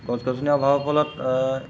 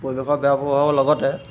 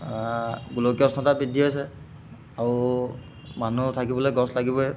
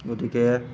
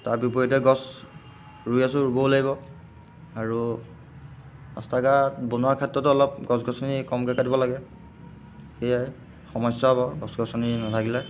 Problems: none marked